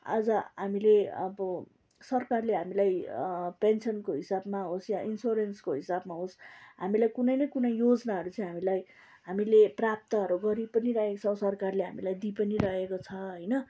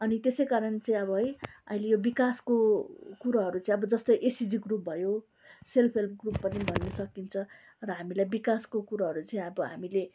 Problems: background sounds at intervals